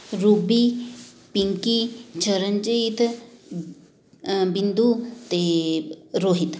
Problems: constant background noise